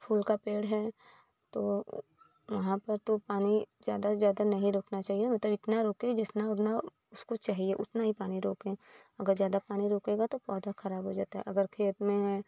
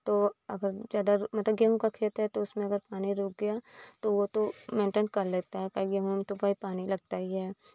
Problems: none marked